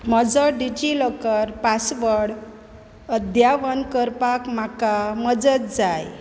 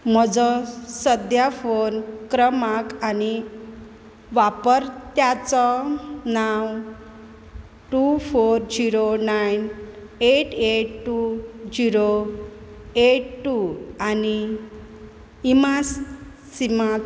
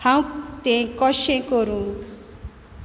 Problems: constant background noise